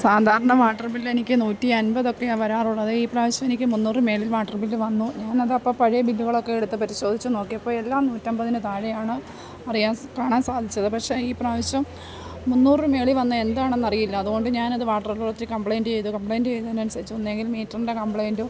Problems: background sounds at intervals